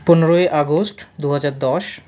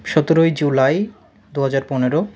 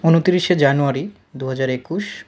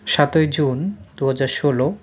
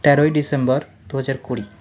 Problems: constant background noise